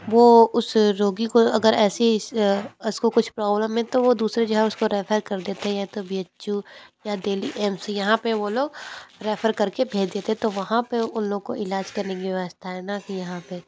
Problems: none marked